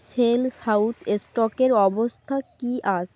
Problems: background sounds at intervals